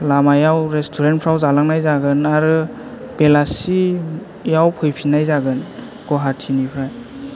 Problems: low volume